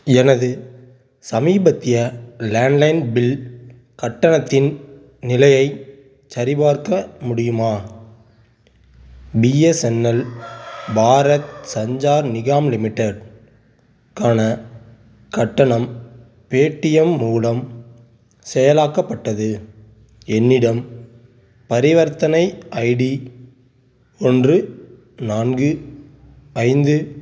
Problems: background sounds at intervals